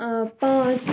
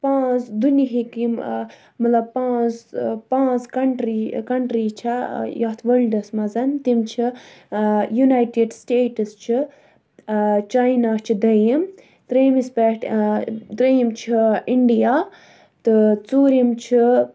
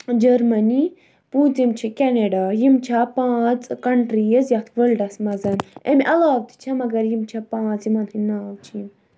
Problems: none marked